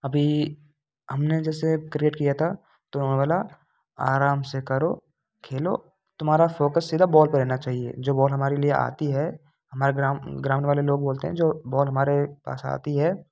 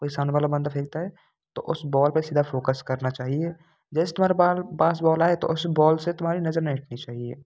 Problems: constant background noise